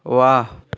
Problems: constant background noise